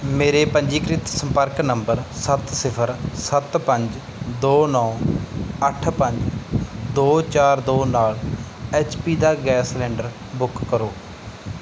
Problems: none marked